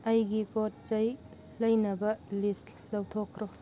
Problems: none marked